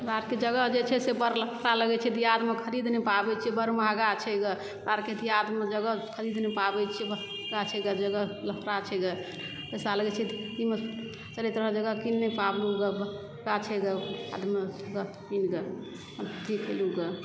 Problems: background sounds at intervals, low volume